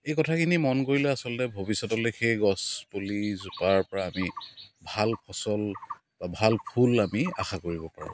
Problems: constant background noise